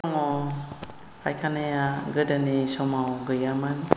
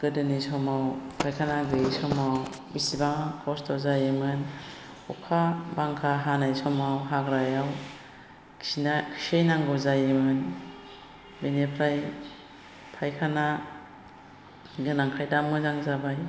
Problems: constant background noise